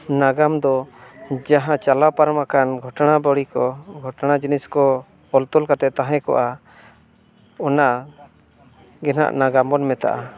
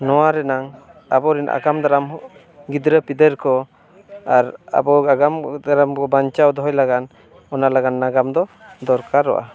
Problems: constant background noise, continuous background conversations